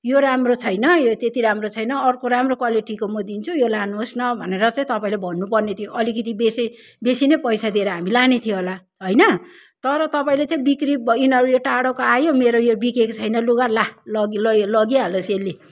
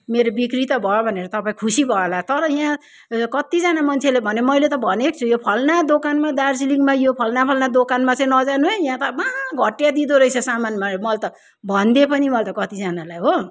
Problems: none marked